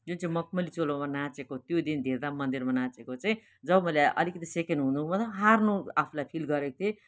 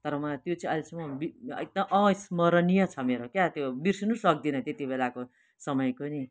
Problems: constant background noise, continuous background conversations